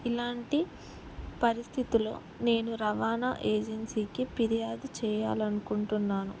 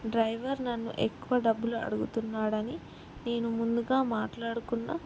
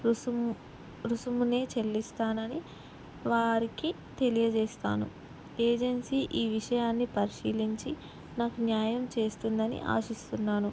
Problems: none marked